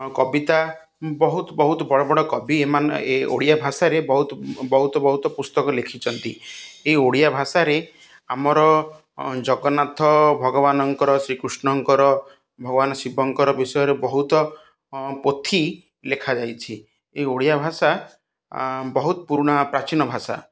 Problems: none marked